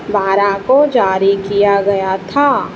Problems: none marked